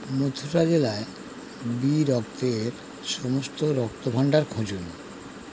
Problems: constant background noise